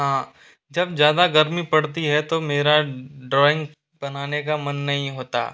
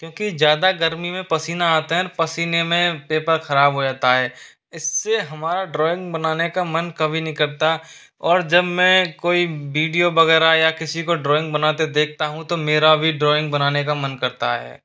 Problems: constant background noise